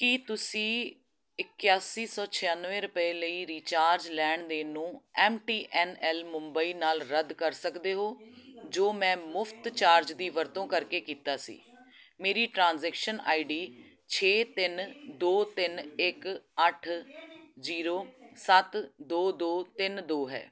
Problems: continuous background conversations